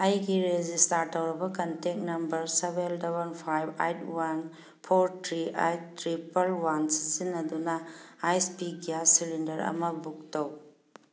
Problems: background sounds at intervals